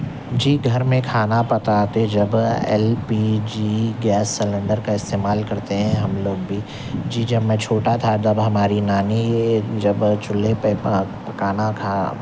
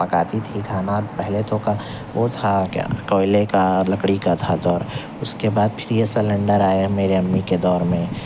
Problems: constant background noise